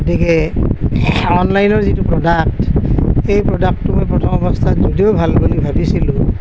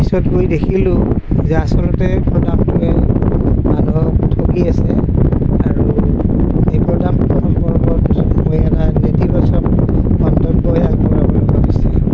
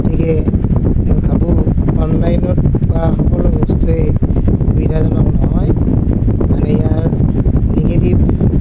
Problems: none marked